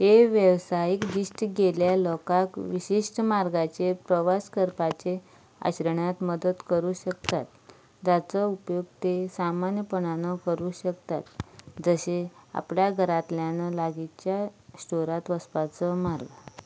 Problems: none marked